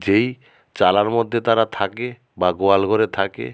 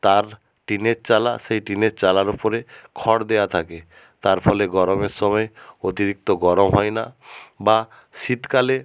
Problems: background sounds at intervals